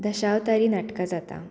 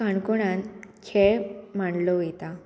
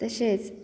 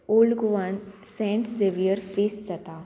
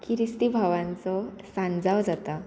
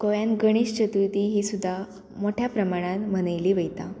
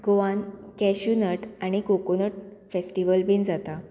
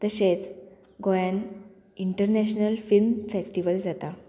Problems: none marked